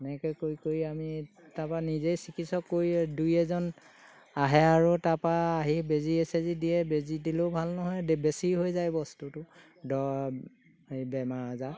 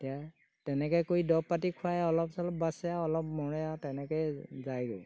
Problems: background sounds at intervals